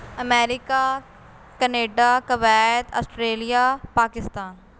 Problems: constant background noise